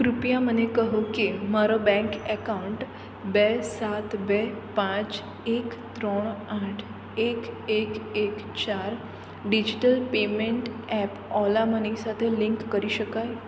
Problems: none marked